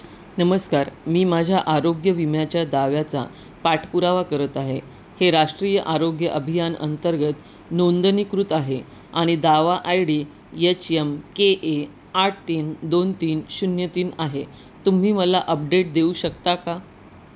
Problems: none marked